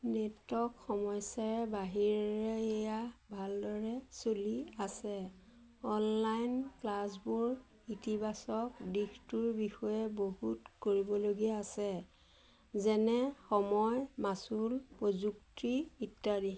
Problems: constant background noise